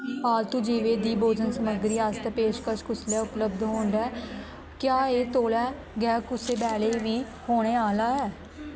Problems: constant background noise